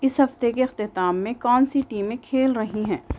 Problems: background sounds at intervals